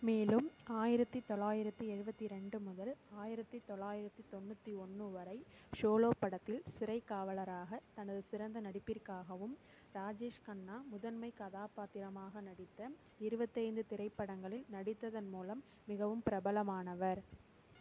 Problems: constant background noise